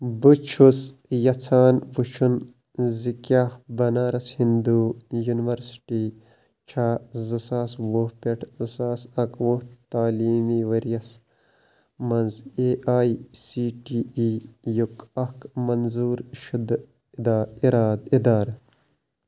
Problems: constant background noise